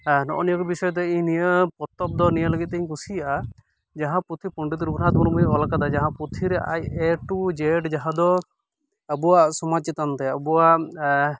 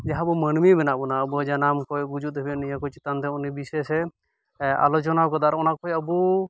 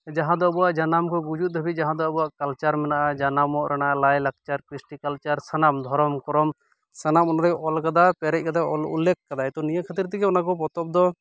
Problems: background sounds at intervals